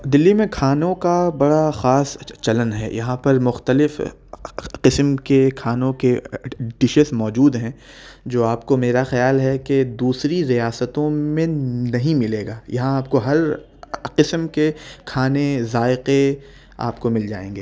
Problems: none marked